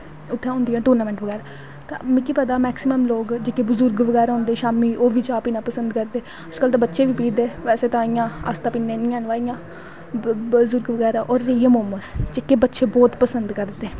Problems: constant background noise